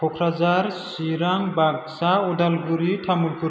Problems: none marked